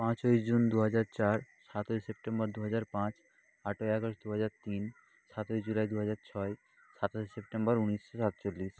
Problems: constant background noise